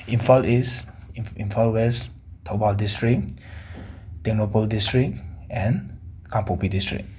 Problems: background sounds at intervals